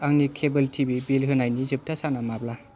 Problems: background sounds at intervals